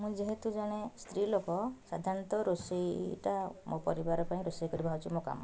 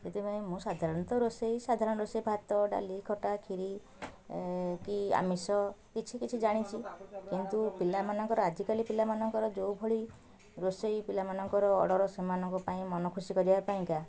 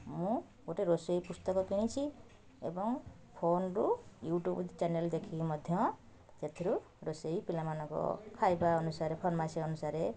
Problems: continuous background conversations